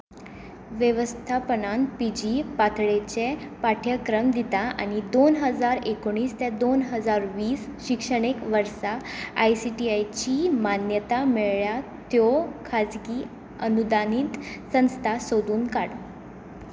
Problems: none marked